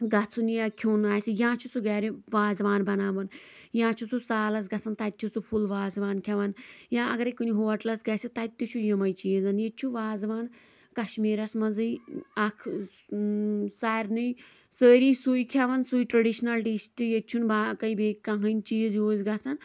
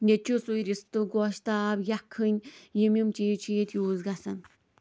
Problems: background sounds at intervals, background conversations at intervals